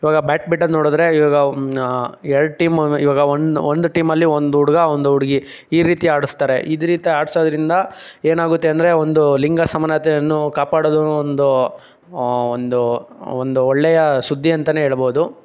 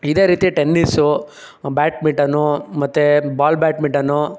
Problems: none marked